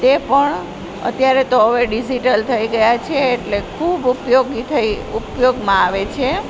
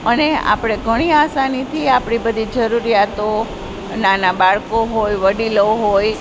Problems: constant background noise